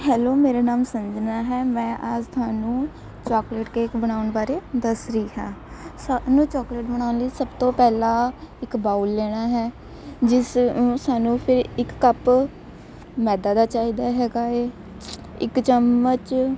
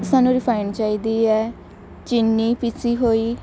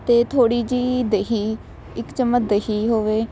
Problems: constant background noise, background conversations at intervals